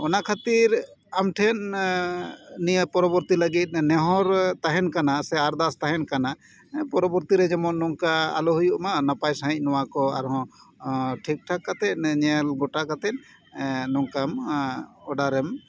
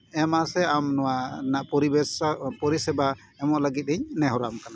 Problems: background conversations at intervals